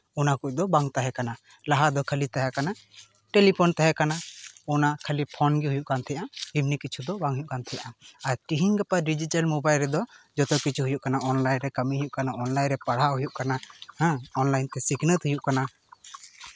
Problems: constant background noise